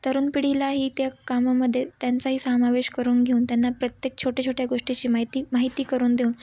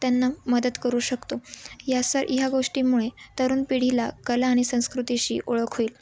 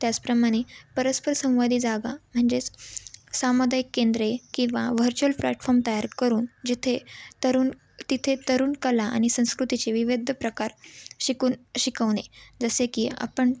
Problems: none marked